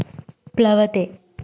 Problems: none marked